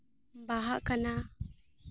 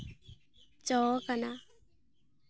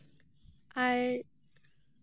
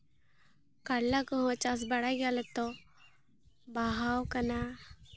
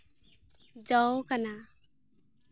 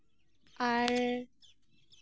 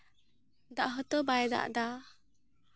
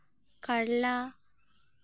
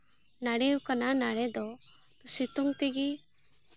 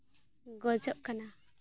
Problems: constant background noise